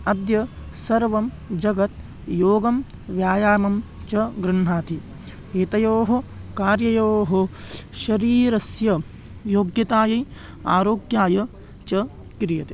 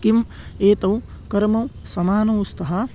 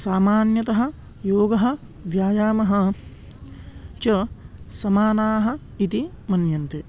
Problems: none marked